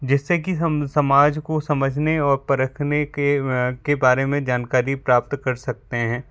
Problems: background sounds at intervals